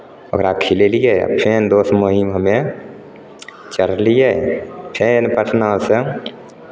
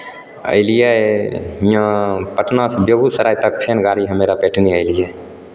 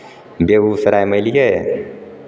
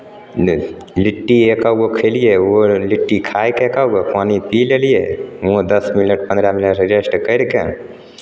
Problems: none marked